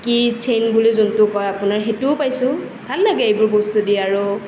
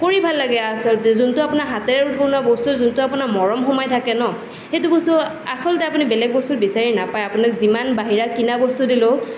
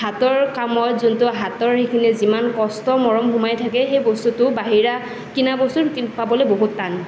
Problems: none marked